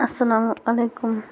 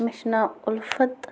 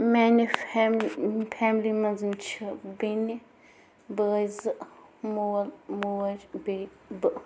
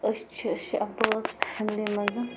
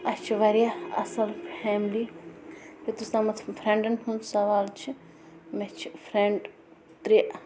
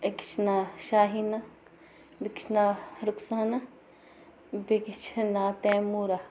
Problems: constant background noise